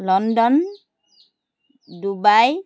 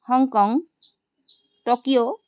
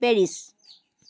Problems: constant background noise